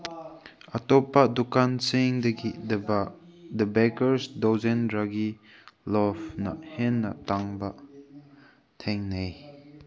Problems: background sounds at intervals